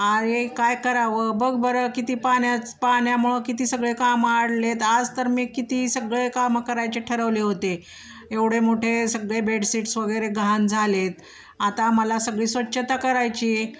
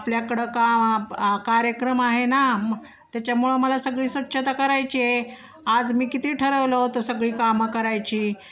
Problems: none marked